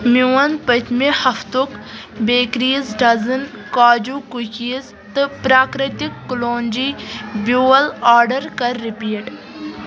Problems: constant background noise